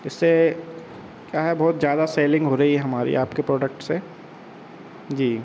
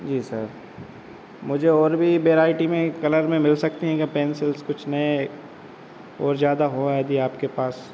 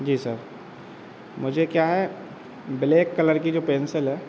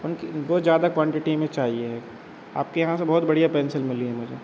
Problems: constant background noise